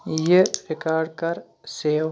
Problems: background sounds at intervals, background conversations at intervals